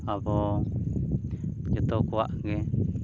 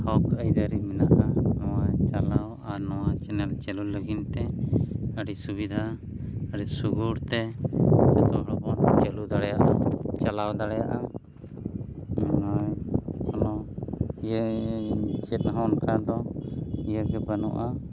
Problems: none marked